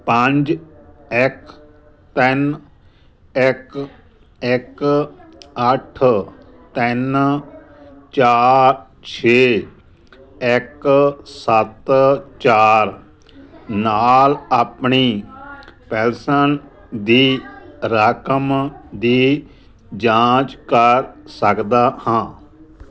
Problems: none marked